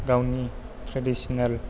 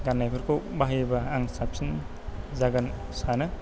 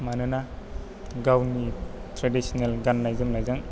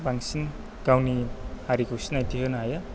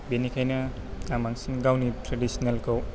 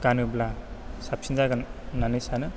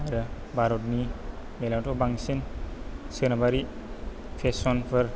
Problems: low volume